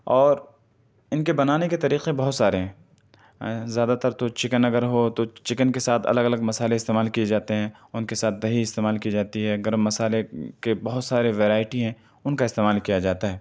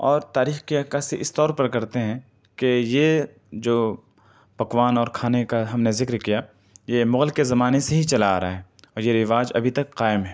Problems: none marked